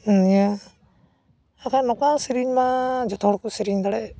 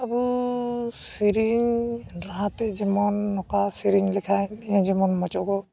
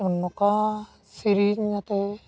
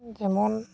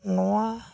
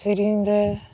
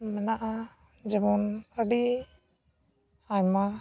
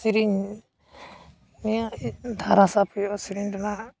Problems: background sounds at intervals